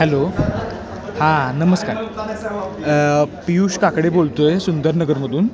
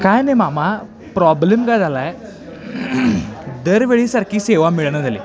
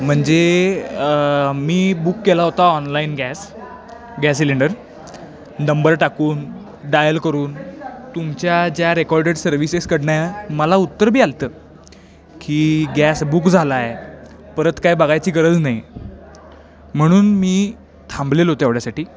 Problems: background sounds at intervals, background conversations at intervals